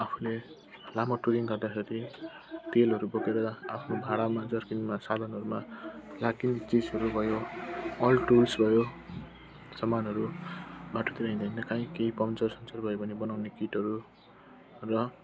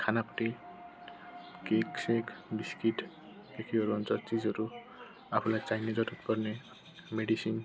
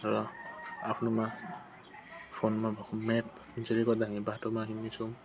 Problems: constant background noise, continuous background conversations